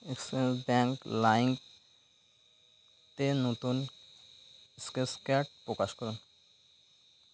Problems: constant background noise